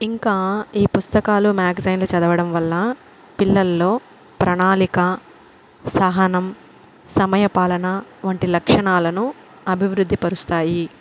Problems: constant background noise